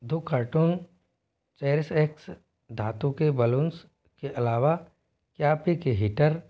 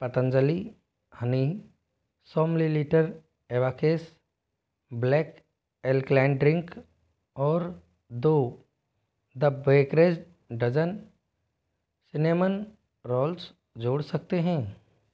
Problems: background sounds at intervals